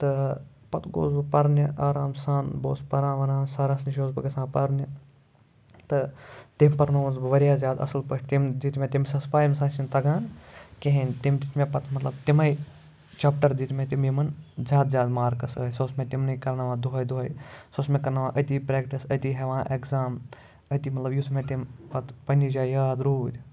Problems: none marked